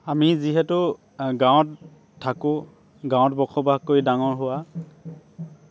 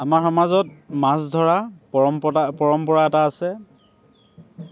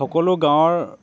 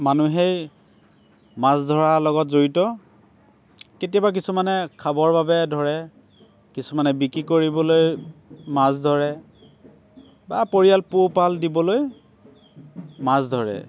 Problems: constant background noise